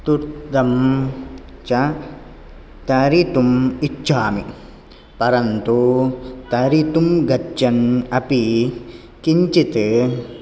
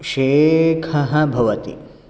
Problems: none marked